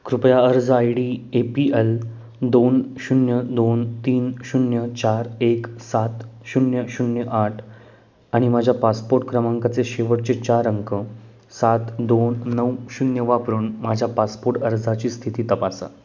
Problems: background sounds at intervals